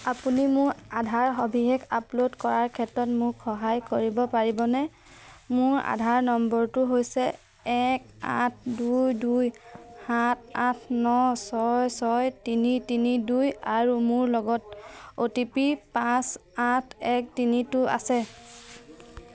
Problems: none marked